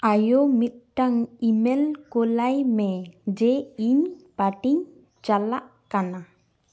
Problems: echo